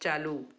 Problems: none marked